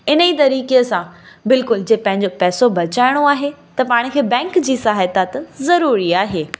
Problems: constant background noise, echo